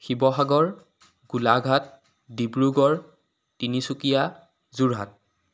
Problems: background sounds at intervals